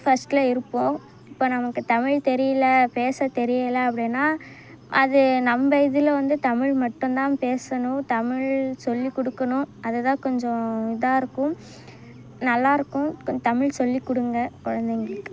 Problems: background sounds at intervals